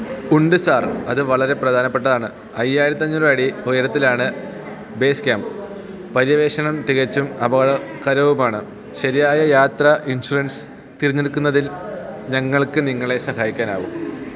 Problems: none marked